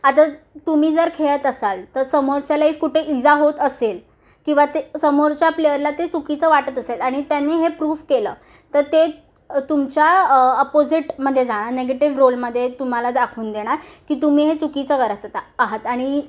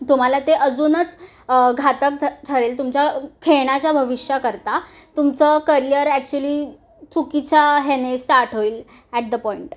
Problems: none marked